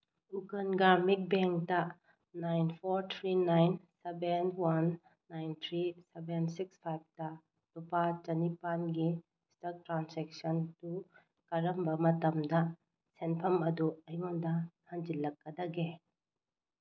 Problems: low volume